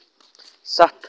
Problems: none marked